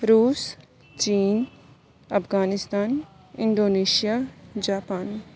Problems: background sounds at intervals